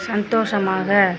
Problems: constant background noise